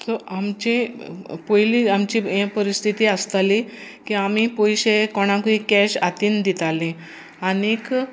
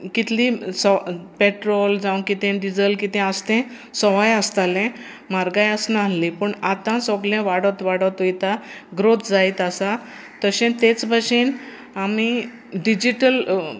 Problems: constant background noise